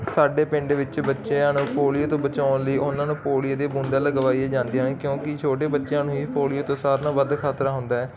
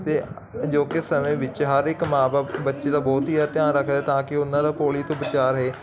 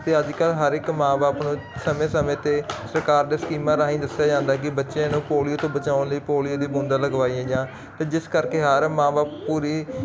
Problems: constant background noise